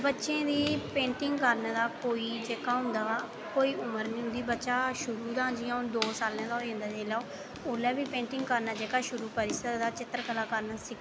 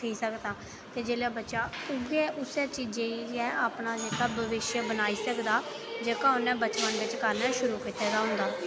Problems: background sounds at intervals